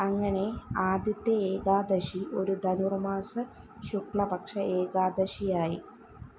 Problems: constant background noise, low volume